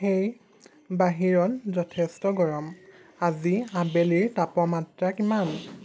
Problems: constant background noise